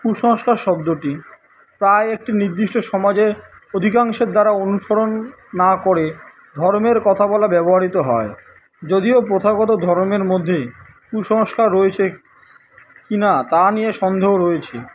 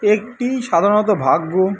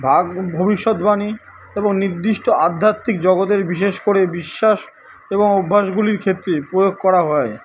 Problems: none marked